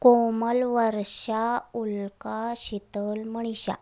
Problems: none marked